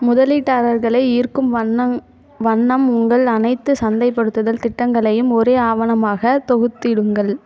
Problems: background sounds at intervals, background conversations at intervals